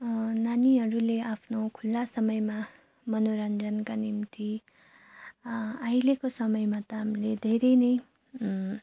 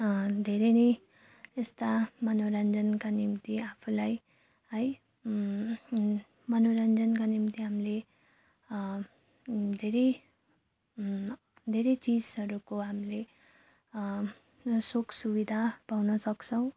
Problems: none marked